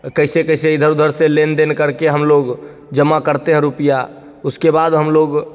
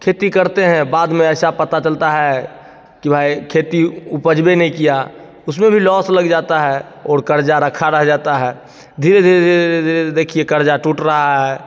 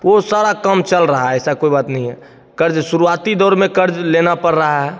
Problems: constant background noise, echo